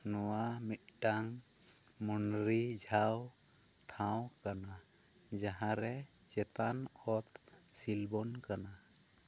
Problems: none marked